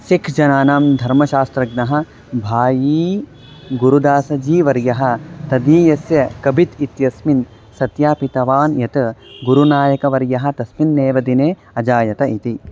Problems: constant background noise